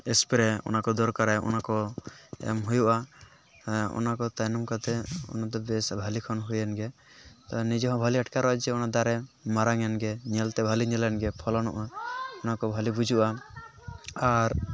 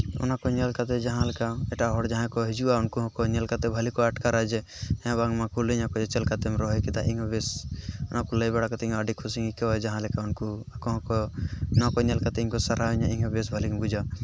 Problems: background conversations at intervals